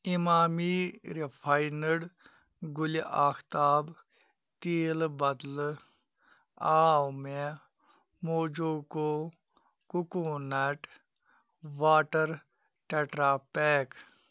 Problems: none marked